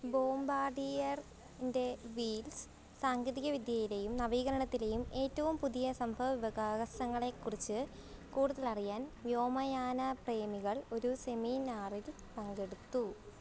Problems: none marked